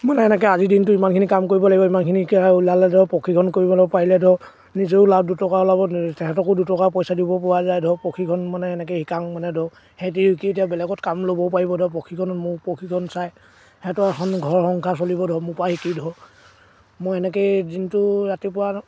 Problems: background sounds at intervals